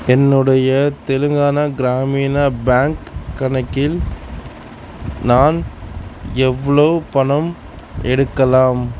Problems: constant background noise